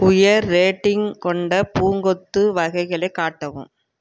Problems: none marked